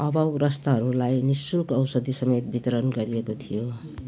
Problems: none marked